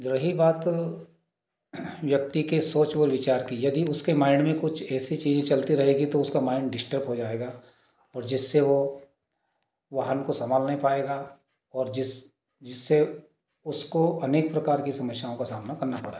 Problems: background sounds at intervals